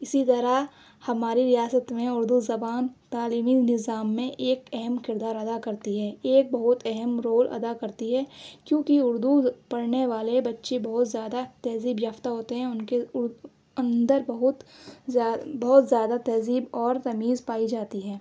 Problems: none marked